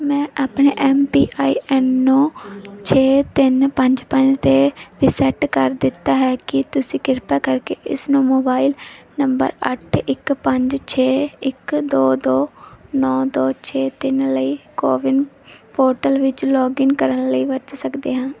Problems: none marked